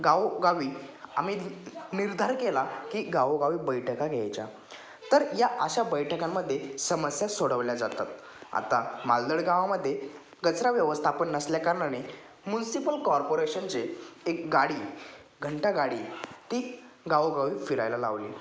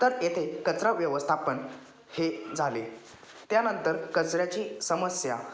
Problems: background sounds at intervals, background conversations at intervals